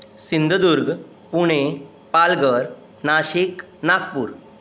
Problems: constant background noise